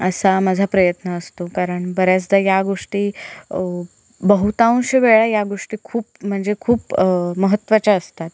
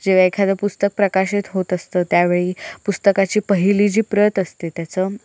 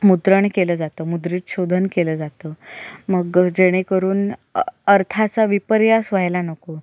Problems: constant background noise